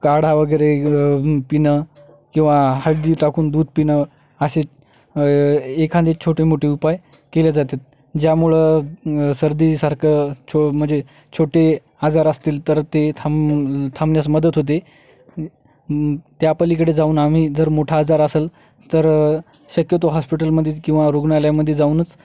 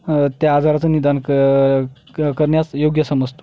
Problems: background sounds at intervals